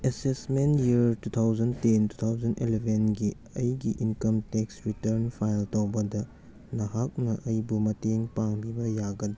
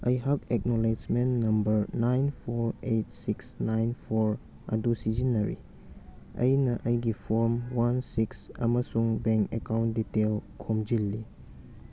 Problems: background sounds at intervals